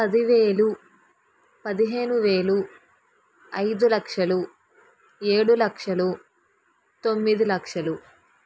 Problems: background sounds at intervals